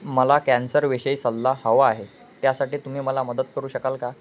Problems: constant background noise